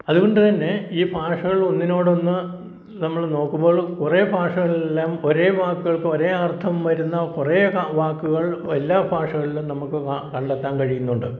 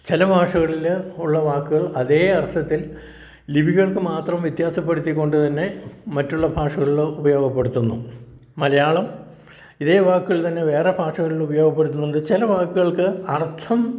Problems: none marked